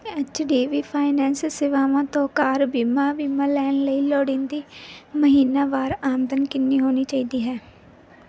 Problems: background sounds at intervals